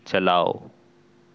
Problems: constant background noise